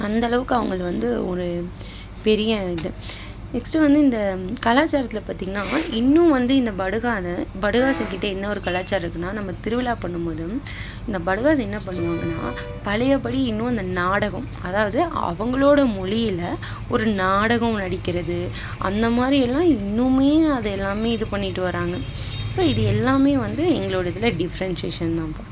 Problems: constant background noise